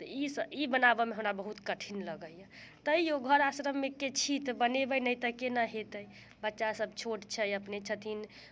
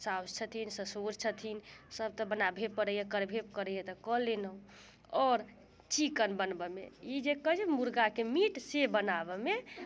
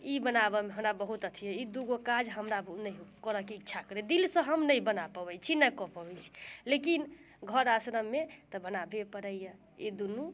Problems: none marked